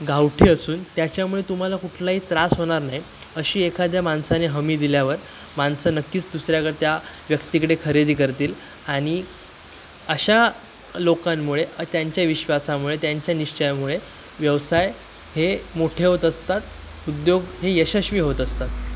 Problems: constant background noise, continuous background conversations